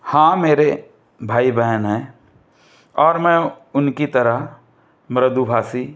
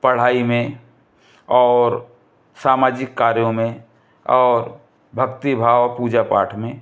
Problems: none marked